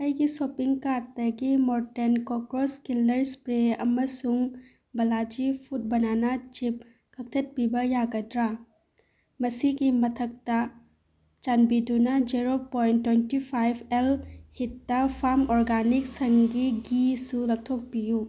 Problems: background sounds at intervals